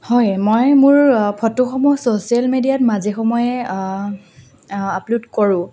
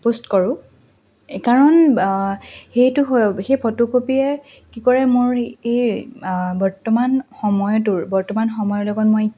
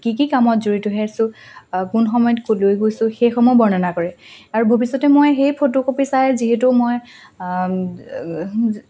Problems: constant background noise